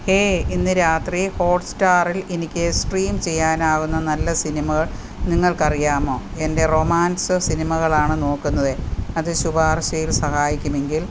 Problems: constant background noise